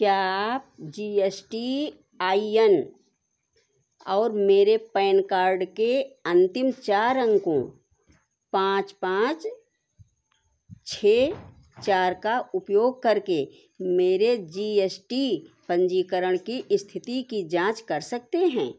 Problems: constant background noise